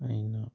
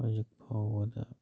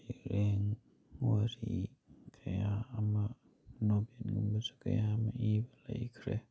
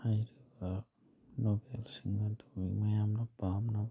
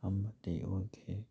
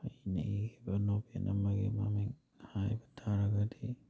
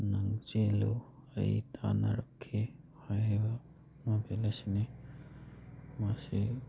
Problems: none marked